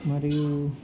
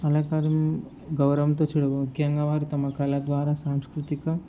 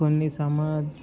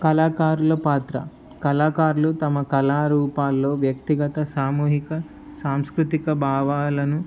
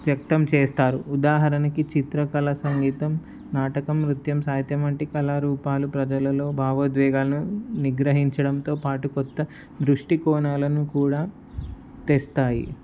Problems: background sounds at intervals